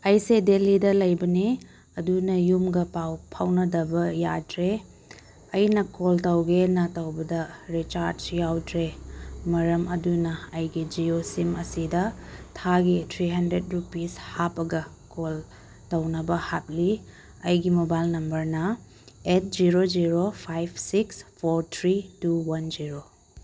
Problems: background sounds at intervals